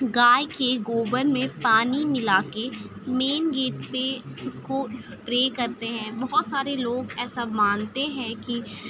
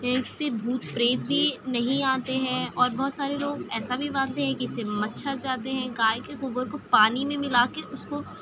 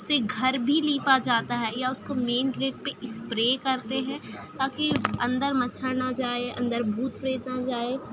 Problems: constant background noise, background conversations at intervals